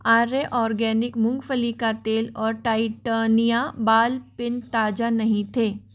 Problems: constant background noise